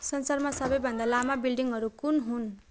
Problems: continuous background conversations